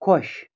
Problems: none marked